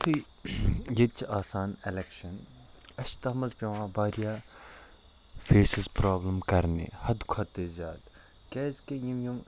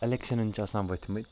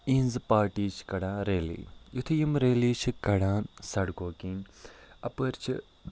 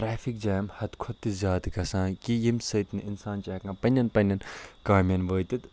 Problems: none marked